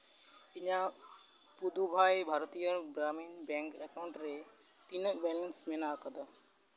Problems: background sounds at intervals